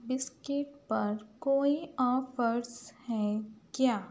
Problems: none marked